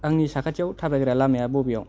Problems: low volume